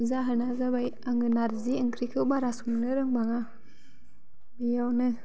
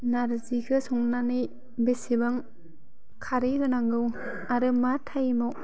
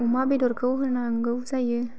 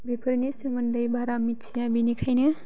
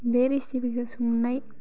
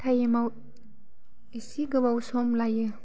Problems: none marked